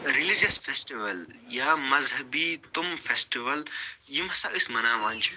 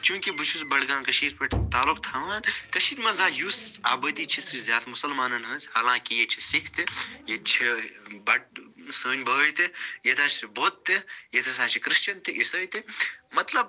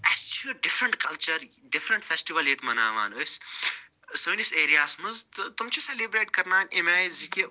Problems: background sounds at intervals